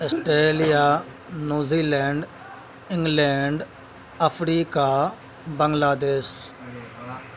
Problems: constant background noise, background conversations at intervals